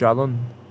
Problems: constant background noise